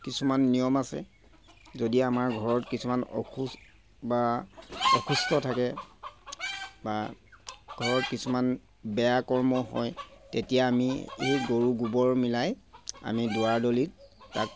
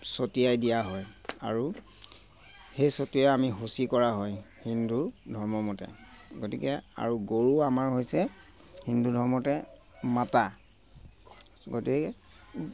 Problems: constant background noise